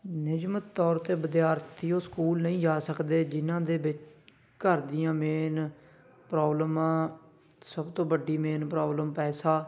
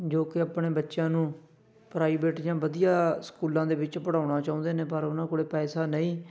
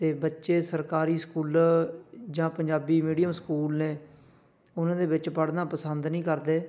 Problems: background sounds at intervals, background conversations at intervals